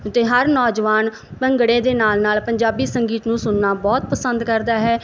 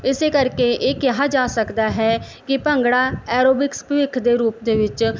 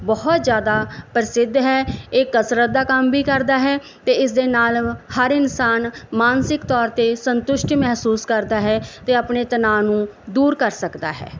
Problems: background sounds at intervals